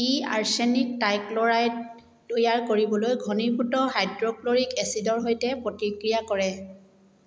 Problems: none marked